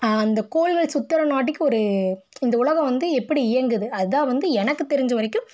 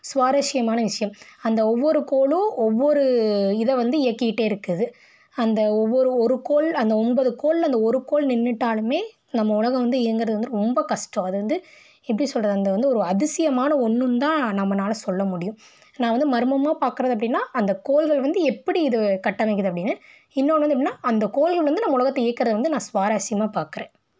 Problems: none marked